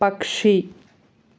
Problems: none marked